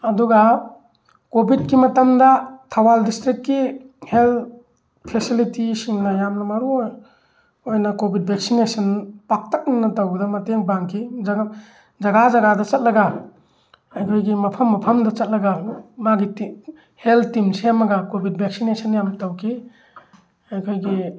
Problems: background sounds at intervals